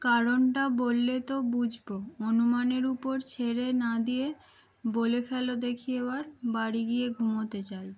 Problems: constant background noise